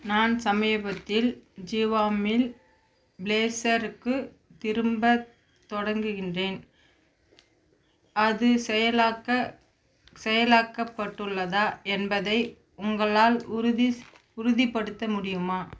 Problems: constant background noise